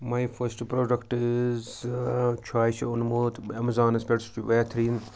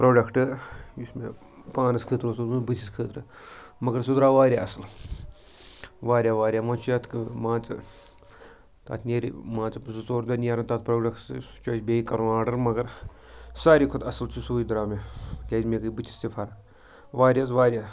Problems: background sounds at intervals, background conversations at intervals